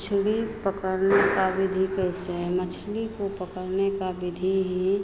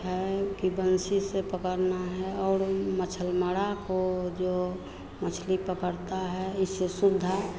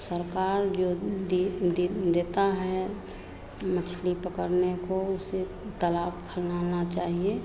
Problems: none marked